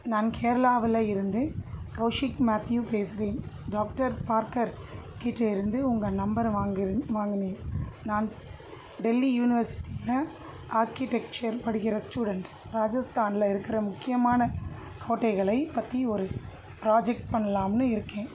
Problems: constant background noise